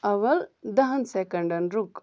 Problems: none marked